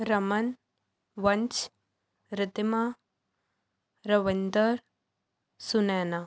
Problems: background sounds at intervals